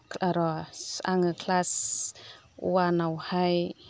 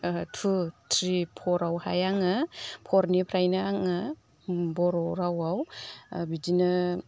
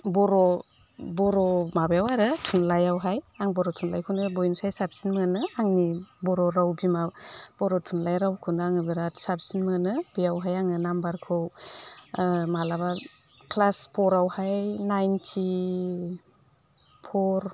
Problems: none marked